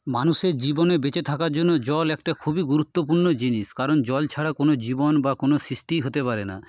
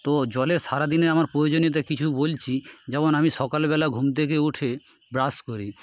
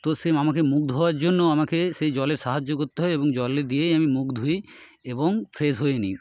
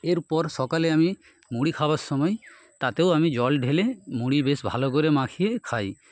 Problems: constant background noise